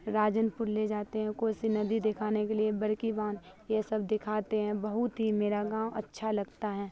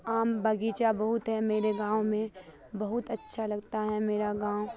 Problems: constant background noise